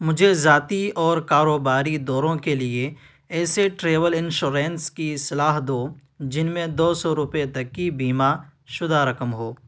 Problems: none marked